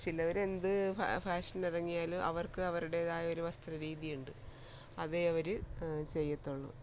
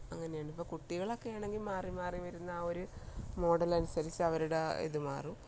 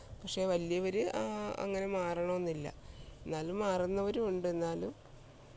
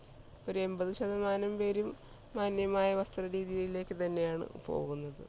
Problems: low volume